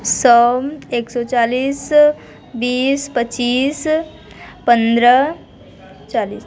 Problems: constant background noise, continuous background conversations